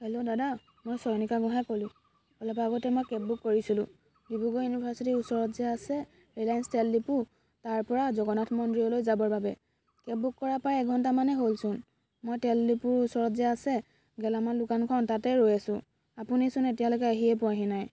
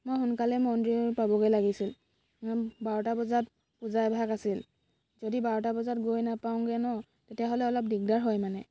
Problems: constant background noise, background conversations at intervals